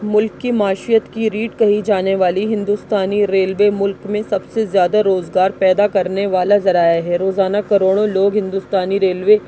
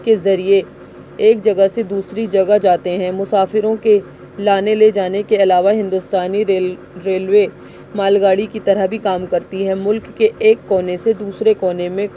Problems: constant background noise